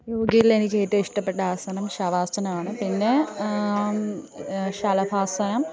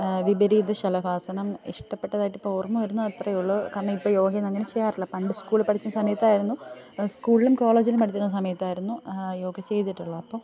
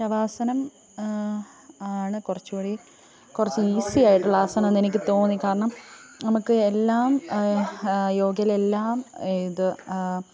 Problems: continuous background conversations, low volume